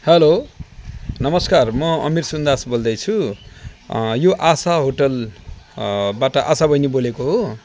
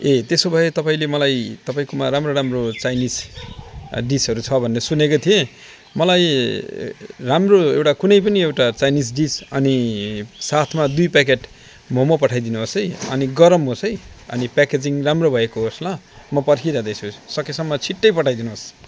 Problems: none marked